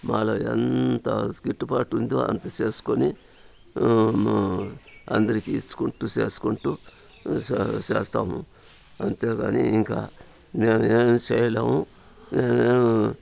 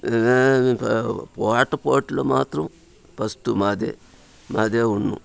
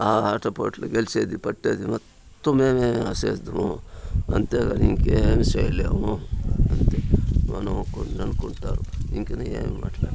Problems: constant background noise, background conversations at intervals